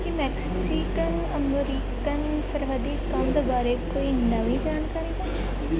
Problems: constant background noise